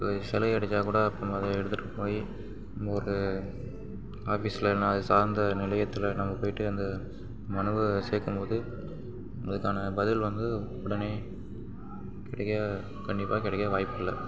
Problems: background sounds at intervals, low volume